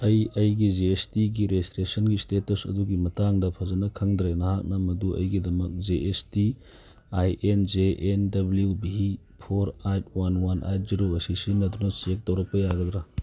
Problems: background sounds at intervals